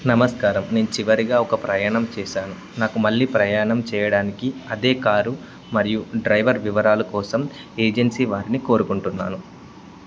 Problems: constant background noise